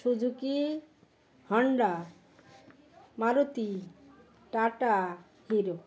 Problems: background conversations at intervals